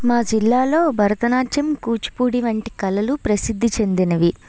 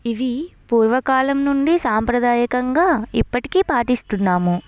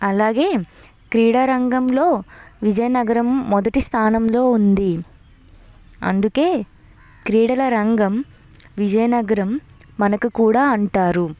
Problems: none marked